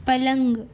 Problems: none marked